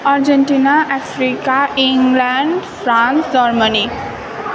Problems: none marked